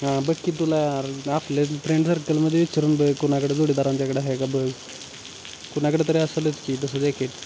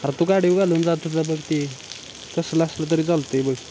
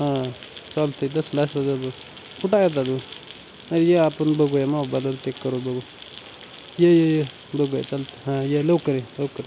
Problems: constant background noise, background conversations at intervals